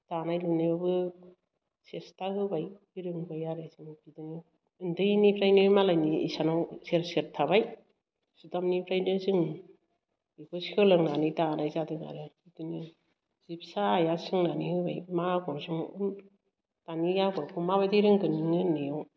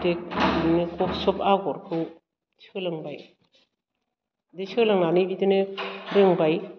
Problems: background sounds at intervals